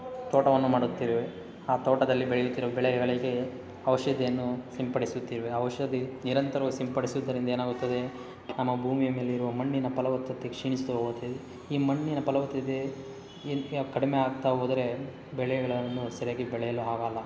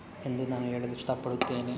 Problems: background sounds at intervals